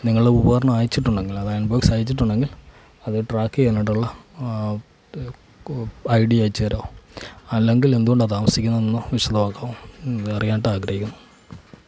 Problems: background sounds at intervals